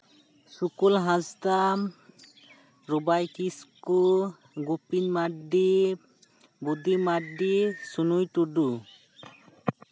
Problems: constant background noise, background conversations at intervals